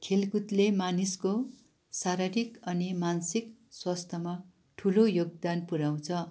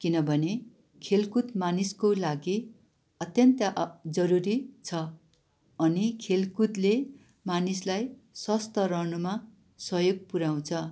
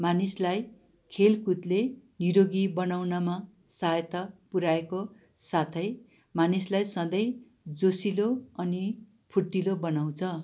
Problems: none marked